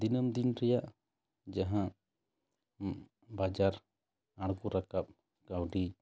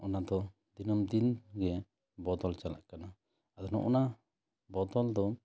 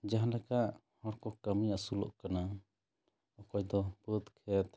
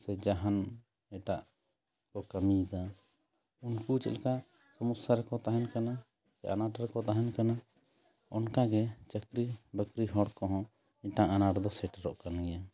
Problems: background conversations at intervals